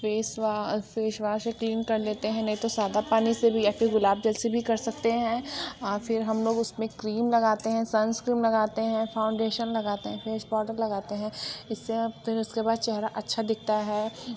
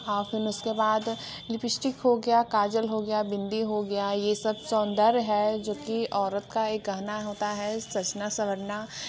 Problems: constant background noise, background conversations at intervals